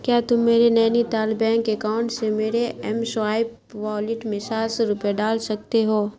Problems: constant background noise